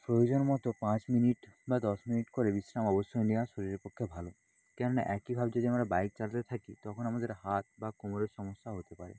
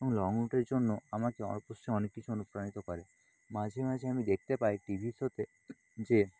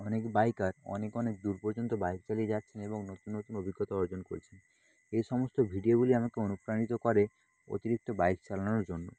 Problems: constant background noise